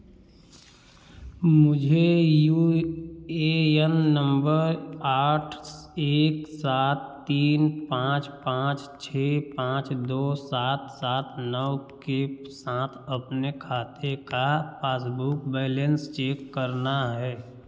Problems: echo